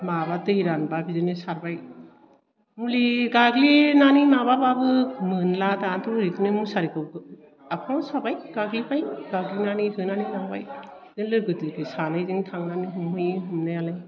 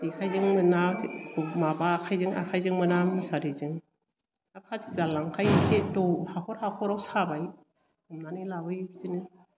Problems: low volume